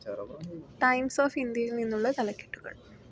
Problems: background conversations at intervals